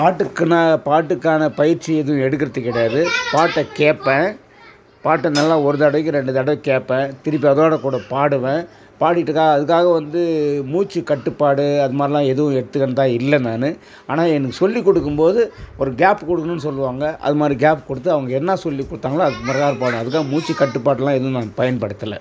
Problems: continuous background conversations